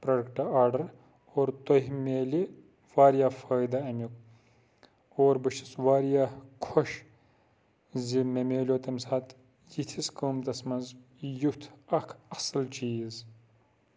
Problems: constant background noise